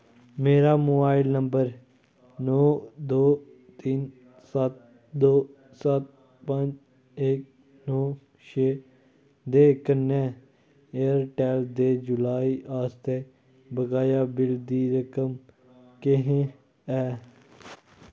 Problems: none marked